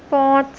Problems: constant background noise